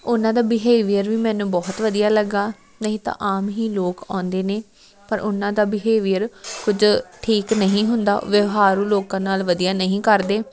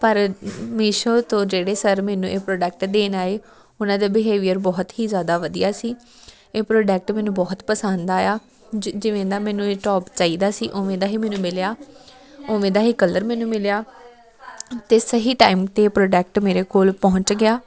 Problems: constant background noise, continuous background conversations